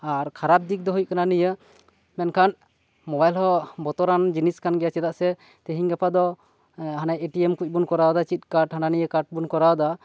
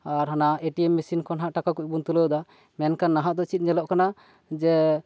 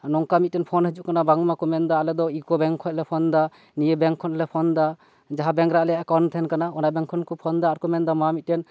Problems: none marked